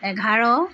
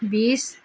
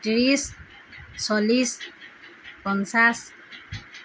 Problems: constant background noise